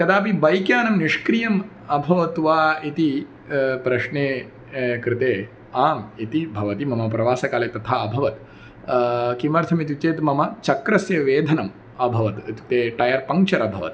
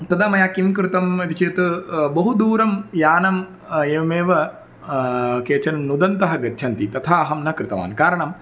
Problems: none marked